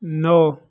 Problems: constant background noise